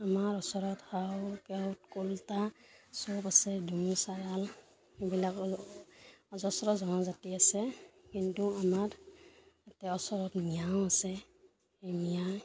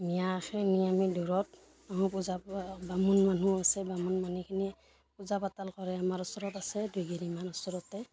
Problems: constant background noise, background conversations at intervals